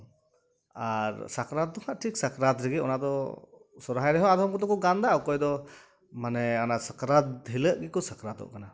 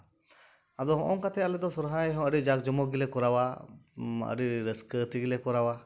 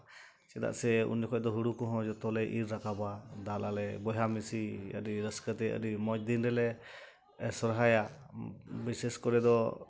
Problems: background sounds at intervals